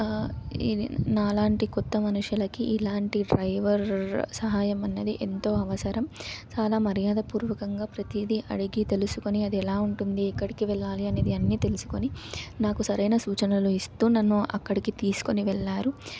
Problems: none marked